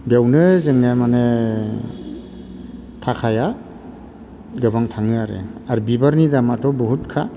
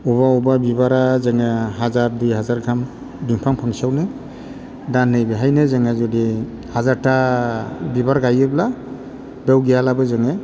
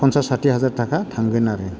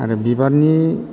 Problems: none marked